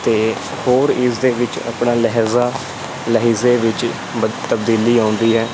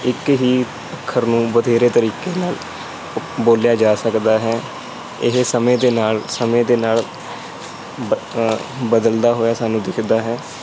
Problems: constant background noise